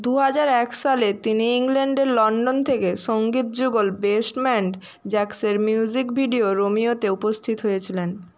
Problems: constant background noise